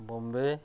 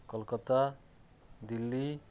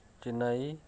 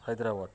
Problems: none marked